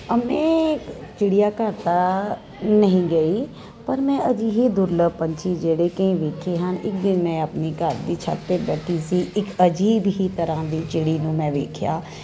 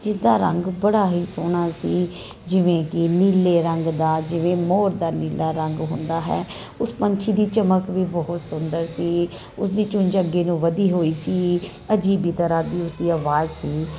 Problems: constant background noise